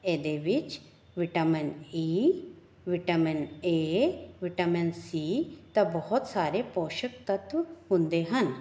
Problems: background sounds at intervals